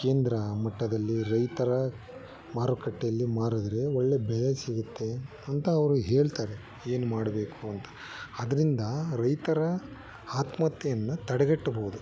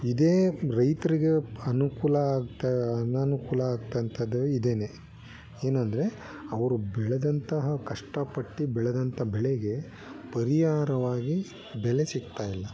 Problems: background conversations at intervals